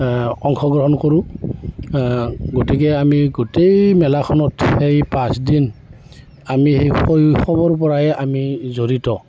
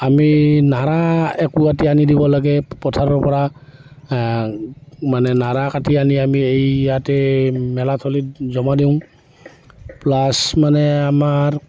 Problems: background sounds at intervals